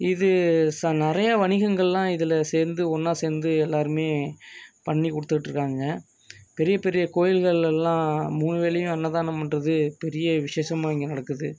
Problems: background conversations at intervals